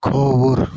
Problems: constant background noise